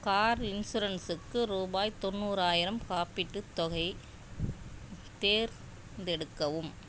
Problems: none marked